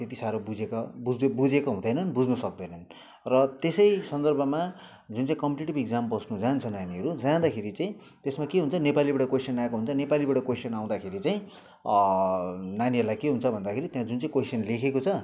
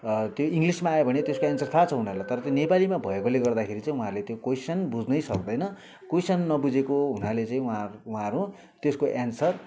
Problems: background sounds at intervals